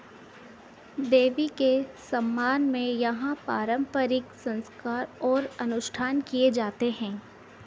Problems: constant background noise